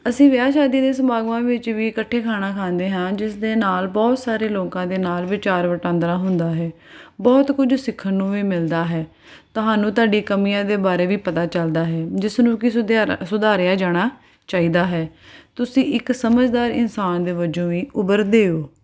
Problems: none marked